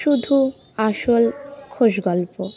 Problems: constant background noise, continuous background conversations